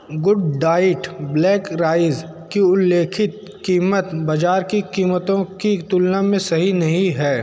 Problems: none marked